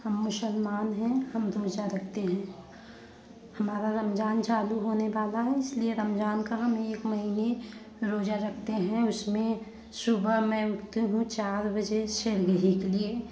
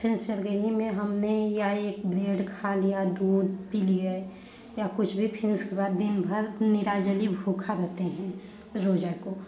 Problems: constant background noise, background conversations at intervals